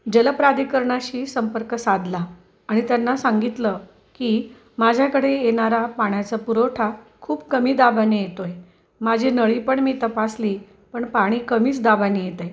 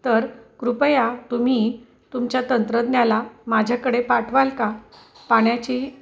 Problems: none marked